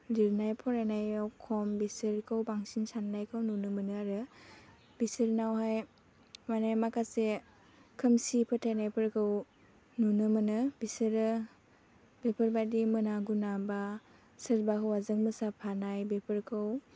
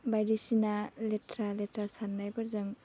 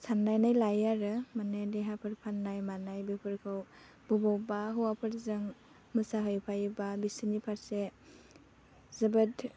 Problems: low volume